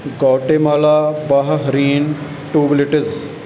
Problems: background sounds at intervals